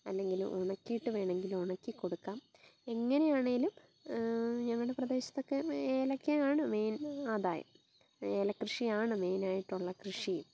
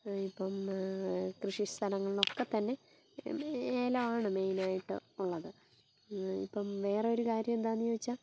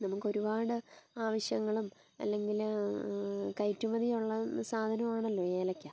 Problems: background sounds at intervals, low volume